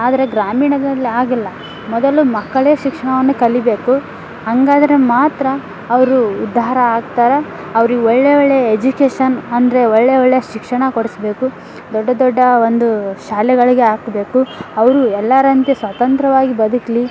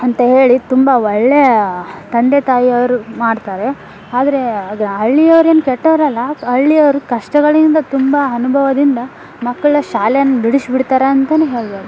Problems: background sounds at intervals